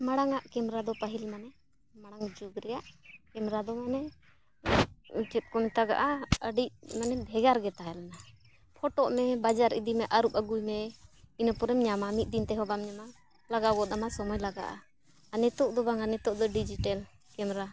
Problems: constant background noise